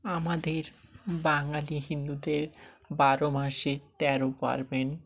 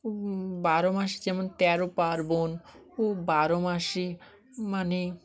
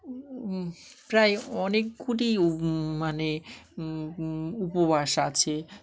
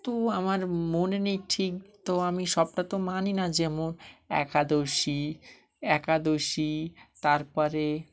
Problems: none marked